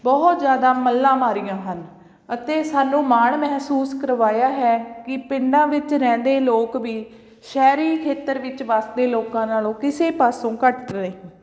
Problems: none marked